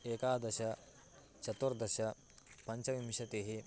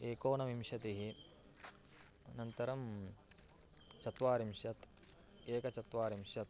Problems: background sounds at intervals